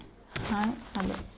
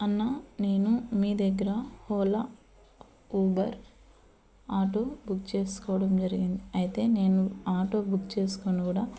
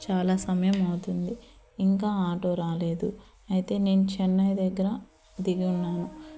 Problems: background sounds at intervals